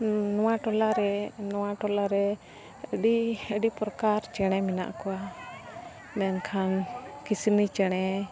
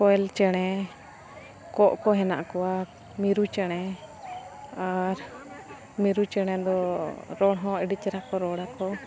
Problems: constant background noise